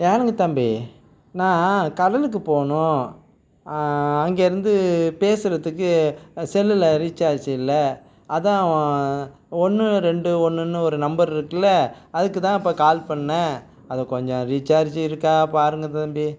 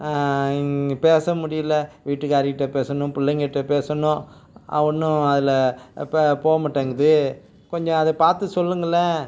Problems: constant background noise